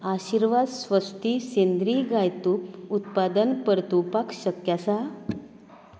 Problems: none marked